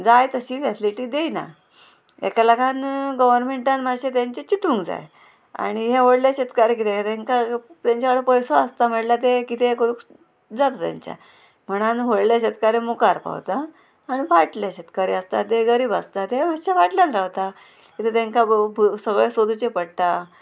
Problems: constant background noise